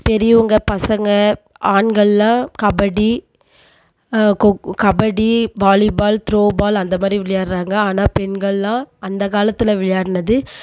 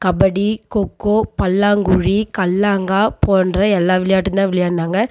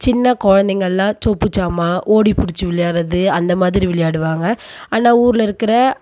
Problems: none marked